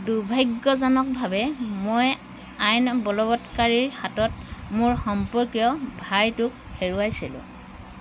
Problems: none marked